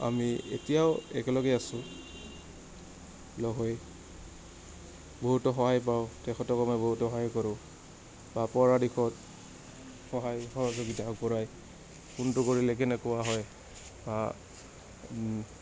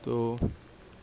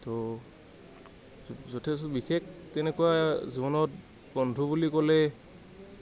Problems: none marked